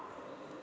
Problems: background sounds at intervals